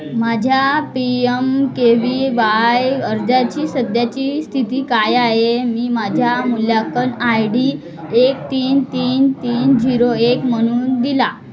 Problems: continuous background conversations